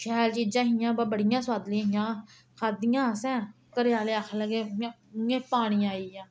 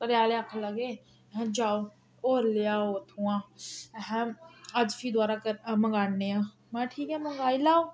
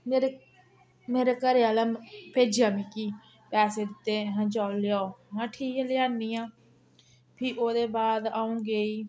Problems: background sounds at intervals